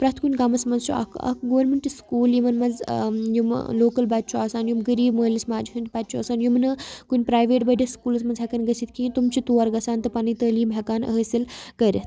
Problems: constant background noise